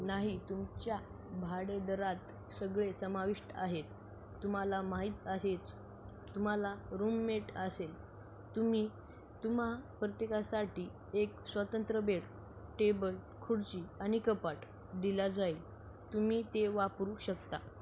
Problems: none marked